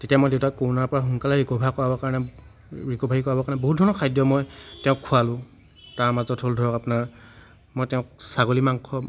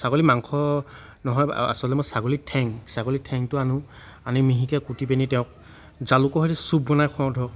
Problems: constant background noise